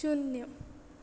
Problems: background sounds at intervals